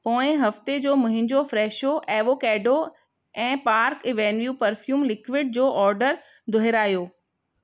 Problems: none marked